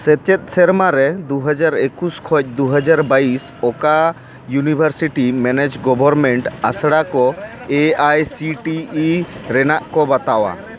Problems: background sounds at intervals, background conversations at intervals